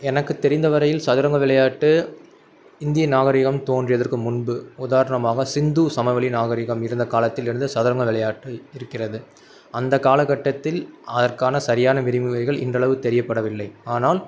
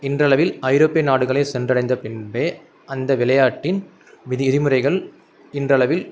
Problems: none marked